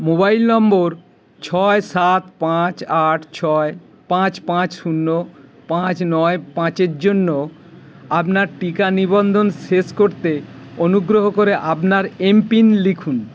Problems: constant background noise, background conversations at intervals